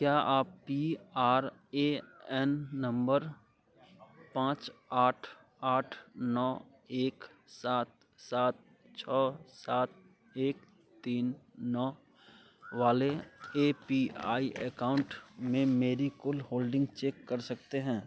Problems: none marked